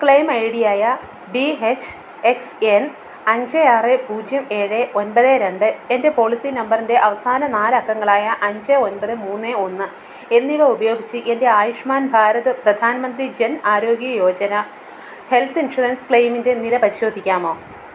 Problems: constant background noise